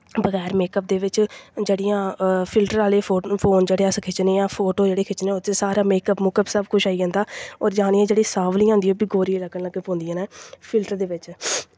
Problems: none marked